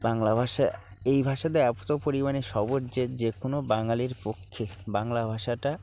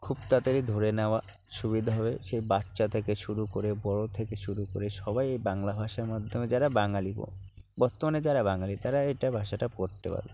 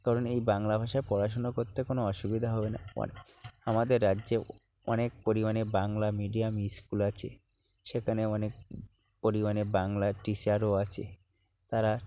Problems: low volume